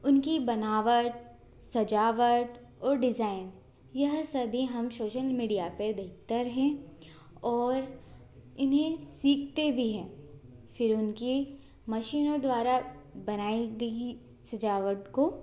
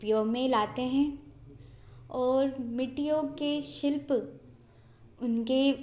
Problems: constant background noise, continuous background conversations